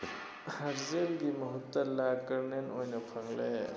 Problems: constant background noise